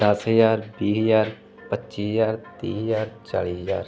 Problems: none marked